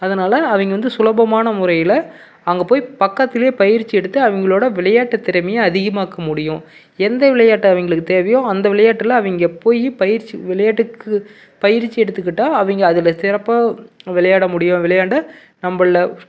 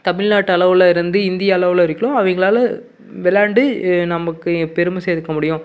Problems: background sounds at intervals